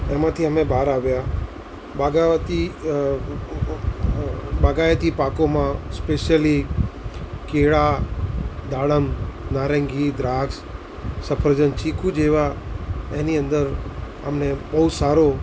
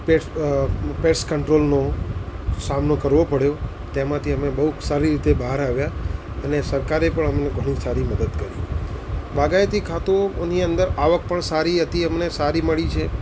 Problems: constant background noise